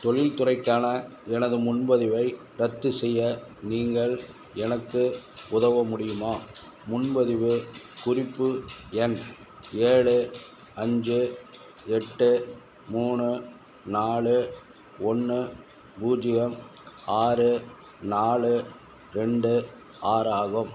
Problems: background sounds at intervals